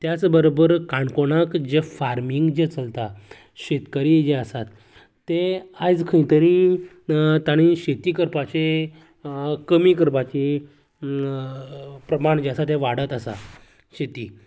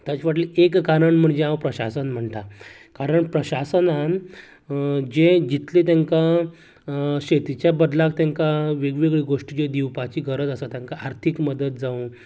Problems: continuous background conversations